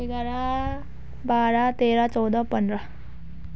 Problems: none marked